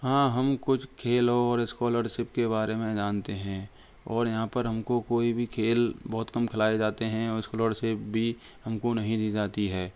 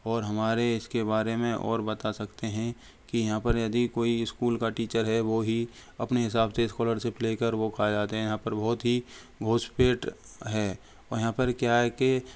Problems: background sounds at intervals